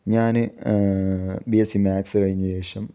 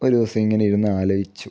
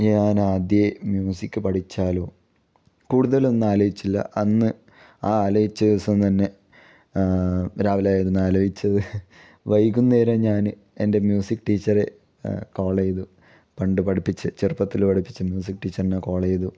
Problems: none marked